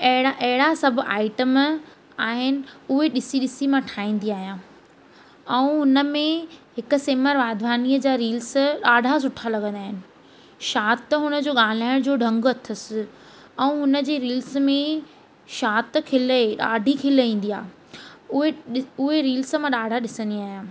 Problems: constant background noise